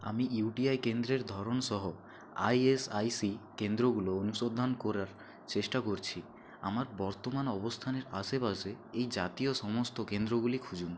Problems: constant background noise, low volume